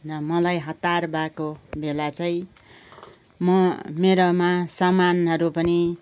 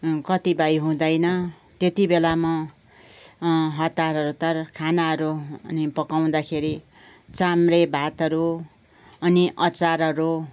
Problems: background conversations at intervals